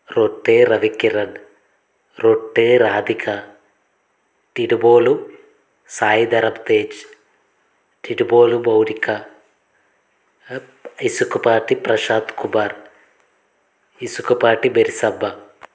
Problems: constant background noise